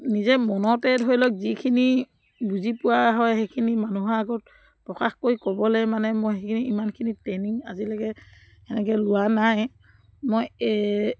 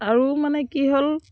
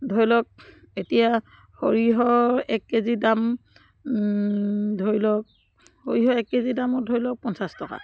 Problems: background sounds at intervals